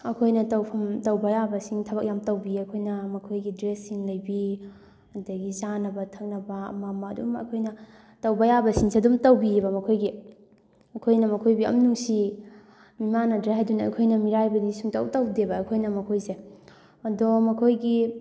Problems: background sounds at intervals